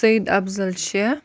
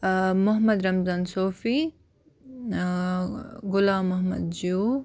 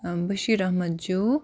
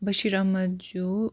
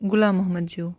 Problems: constant background noise